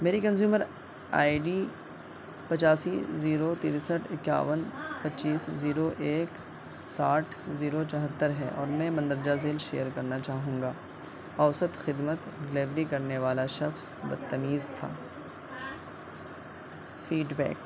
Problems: constant background noise, continuous background conversations